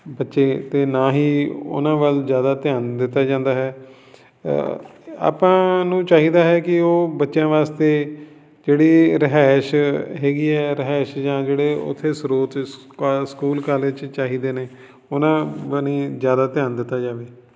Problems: background sounds at intervals